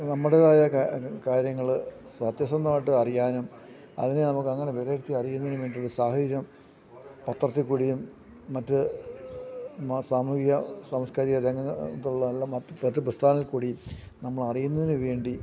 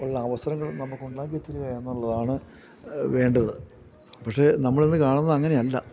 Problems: background conversations at intervals